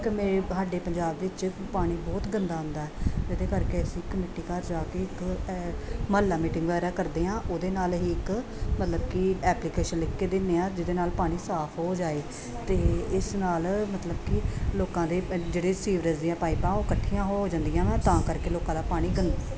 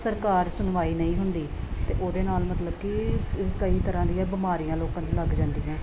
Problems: continuous background conversations